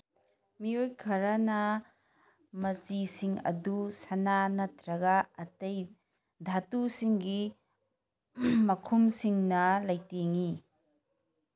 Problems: none marked